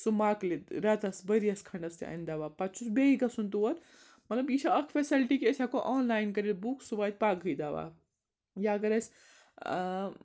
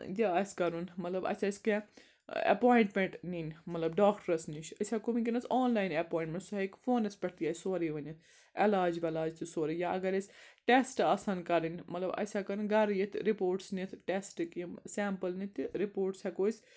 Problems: background sounds at intervals